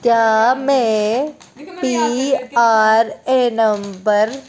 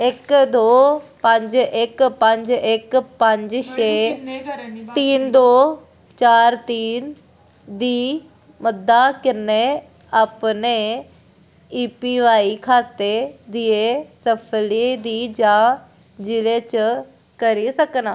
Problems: background sounds at intervals